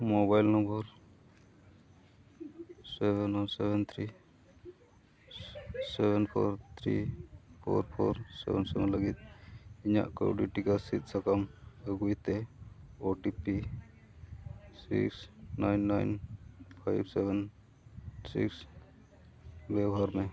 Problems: background sounds at intervals, continuous background conversations